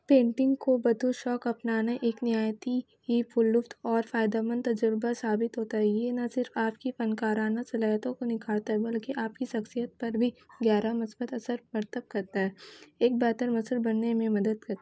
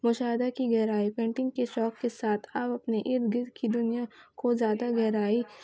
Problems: background sounds at intervals, low volume